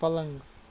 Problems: background sounds at intervals